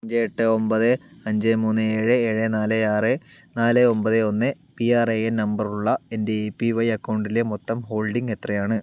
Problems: none marked